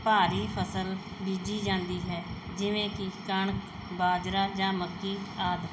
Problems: background sounds at intervals